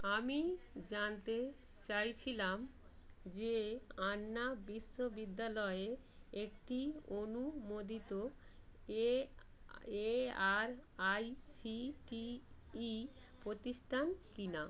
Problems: none marked